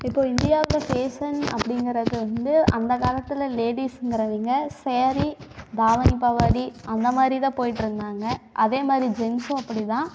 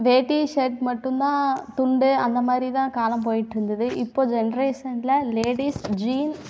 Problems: background sounds at intervals, echo